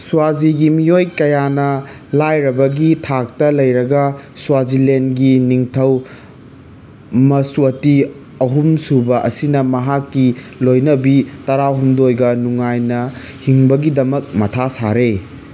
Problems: constant background noise